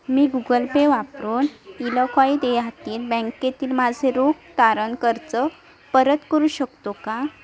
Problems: background sounds at intervals, continuous background conversations